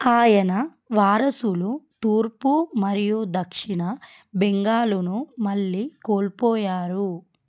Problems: none marked